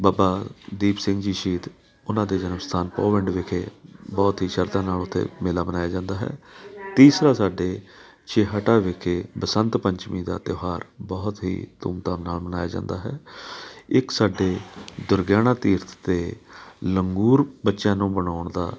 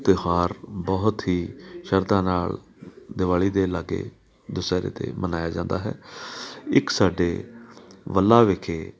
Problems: constant background noise